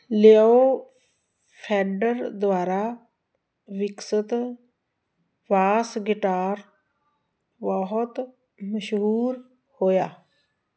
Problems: none marked